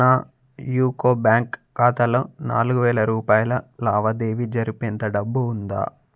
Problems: none marked